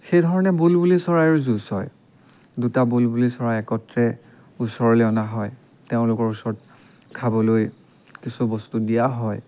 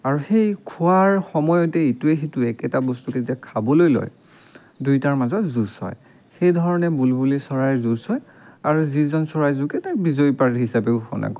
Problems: background sounds at intervals